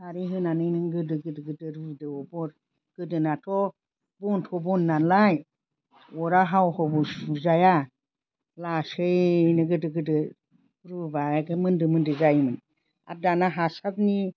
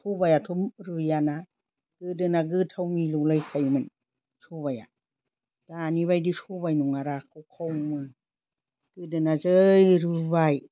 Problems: constant background noise